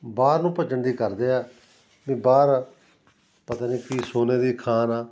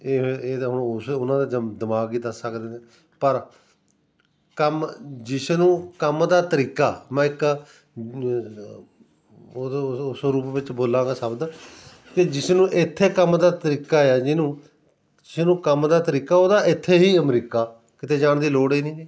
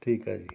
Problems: background sounds at intervals